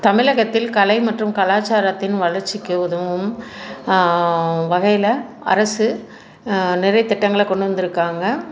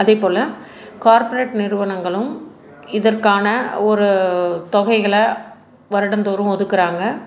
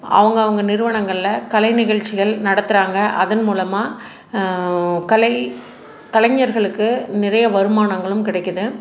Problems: constant background noise